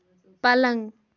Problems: none marked